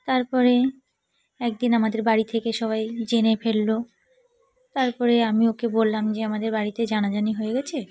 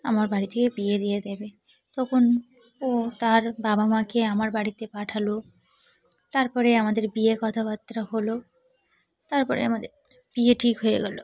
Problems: constant background noise, continuous background conversations